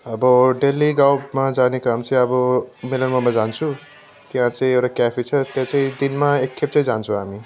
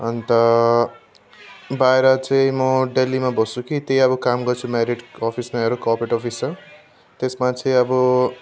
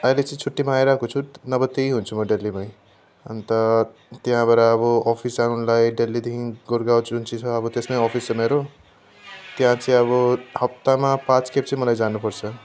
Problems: constant background noise